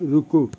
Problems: none marked